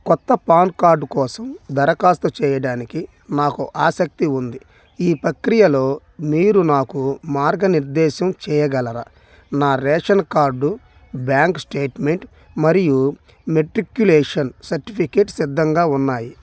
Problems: none marked